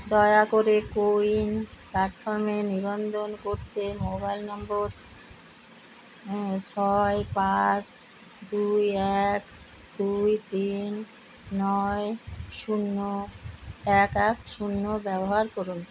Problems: constant background noise